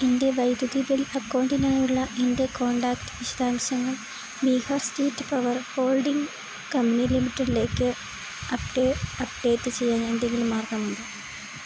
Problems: constant background noise